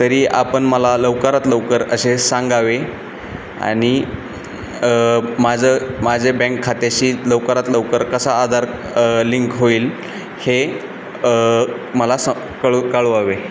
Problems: constant background noise